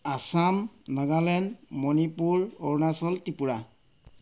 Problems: none marked